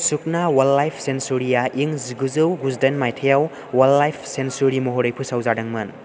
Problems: none marked